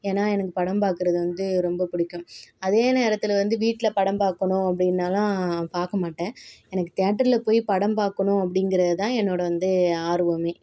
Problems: background sounds at intervals